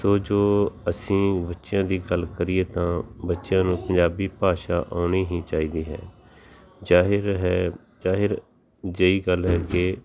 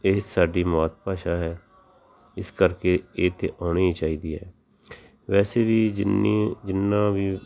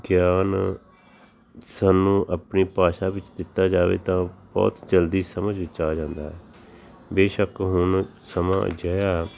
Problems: none marked